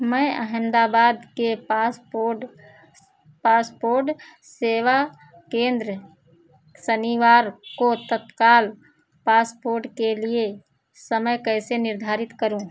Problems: background sounds at intervals